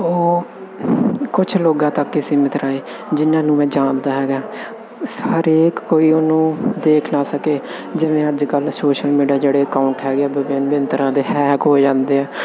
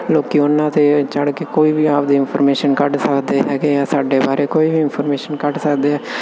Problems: none marked